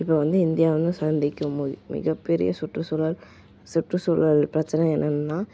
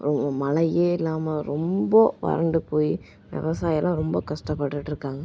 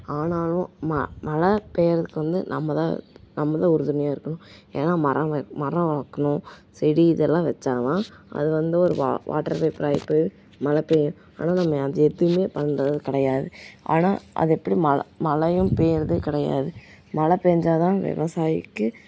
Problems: background sounds at intervals